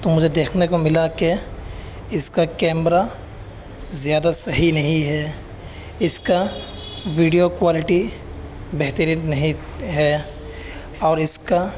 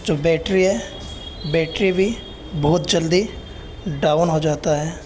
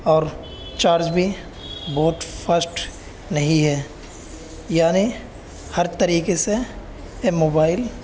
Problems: constant background noise